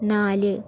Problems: none marked